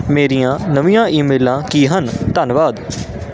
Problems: constant background noise